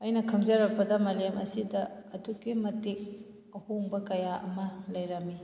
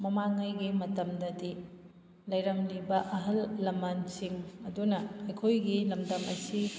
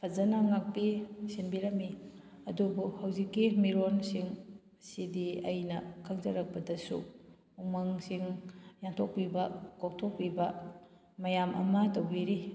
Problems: background sounds at intervals